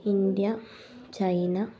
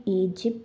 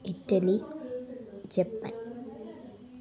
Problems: low volume